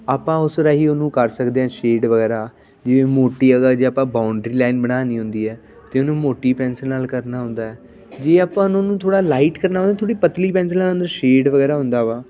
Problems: constant background noise, continuous background conversations